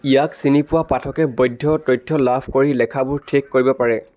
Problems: background sounds at intervals